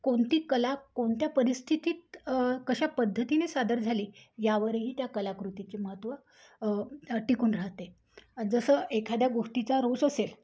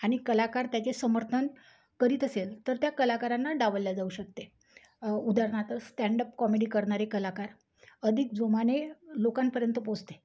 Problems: background sounds at intervals